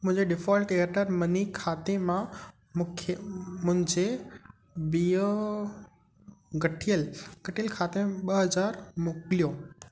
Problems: constant background noise, echo